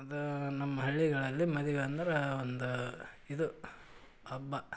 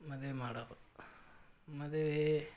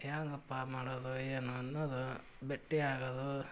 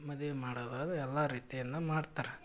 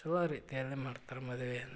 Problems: none marked